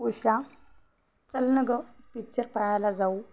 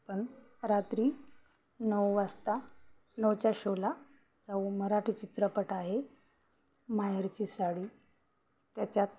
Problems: constant background noise, background conversations at intervals